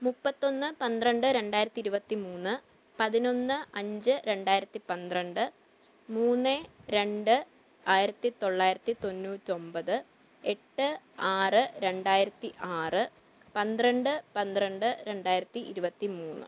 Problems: low volume